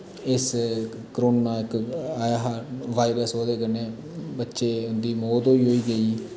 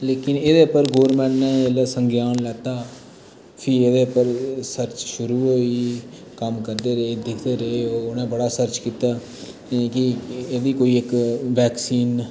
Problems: constant background noise, background conversations at intervals